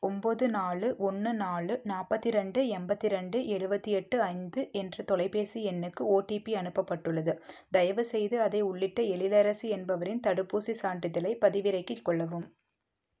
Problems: low volume